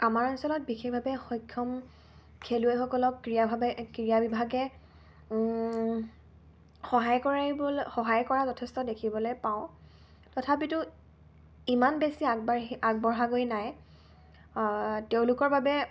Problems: constant background noise